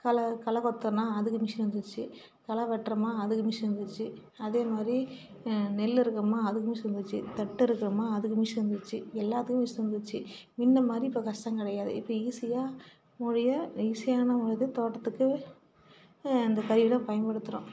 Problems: none marked